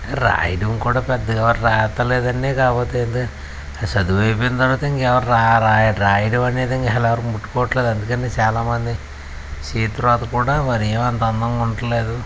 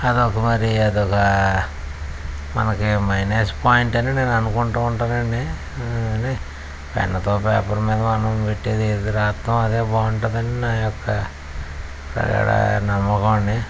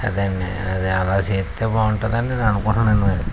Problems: constant background noise